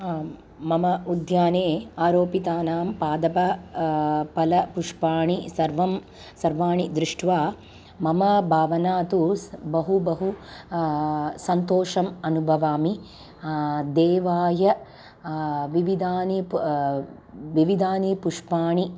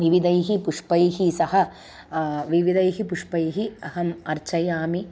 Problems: none marked